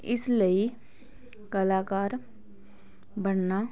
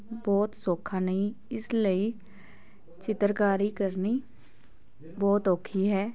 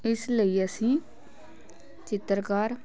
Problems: background sounds at intervals, continuous background conversations